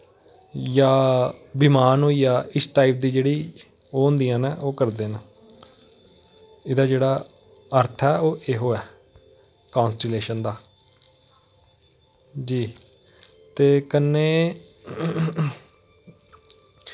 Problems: constant background noise